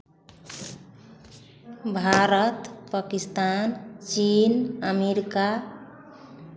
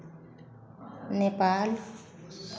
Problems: continuous background conversations